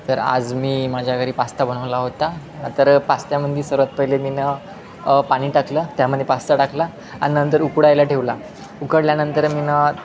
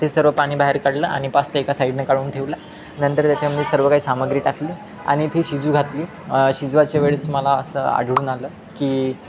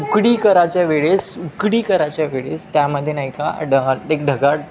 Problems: constant background noise, continuous background conversations